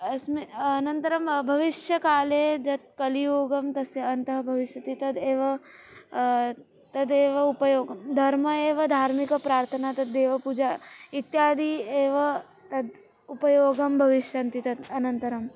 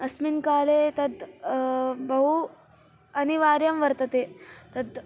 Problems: continuous background conversations